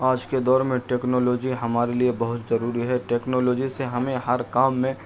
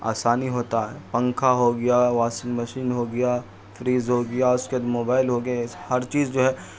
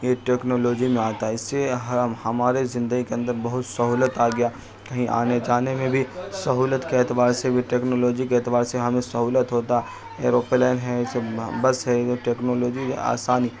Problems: constant background noise